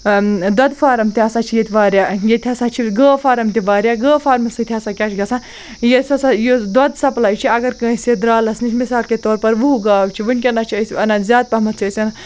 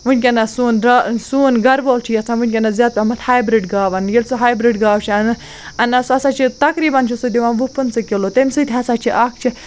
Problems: none marked